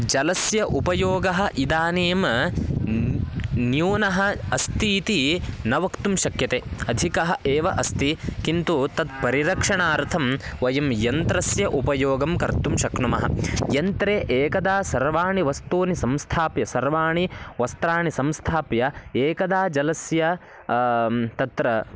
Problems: background sounds at intervals